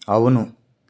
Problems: none marked